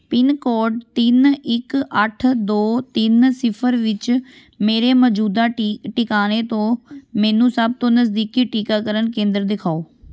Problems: background sounds at intervals